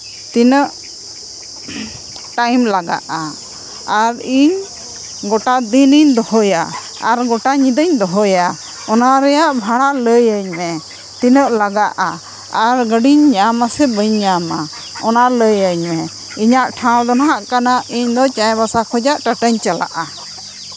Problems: background sounds at intervals